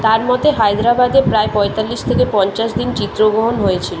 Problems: constant background noise